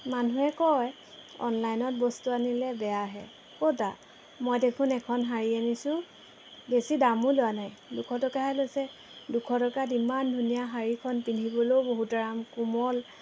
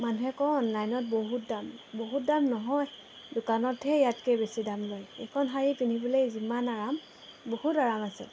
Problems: background sounds at intervals